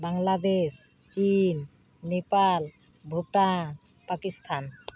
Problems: background sounds at intervals